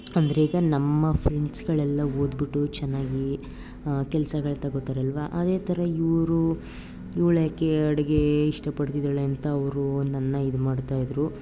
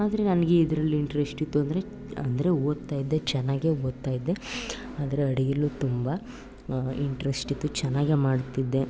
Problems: none marked